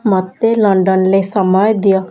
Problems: none marked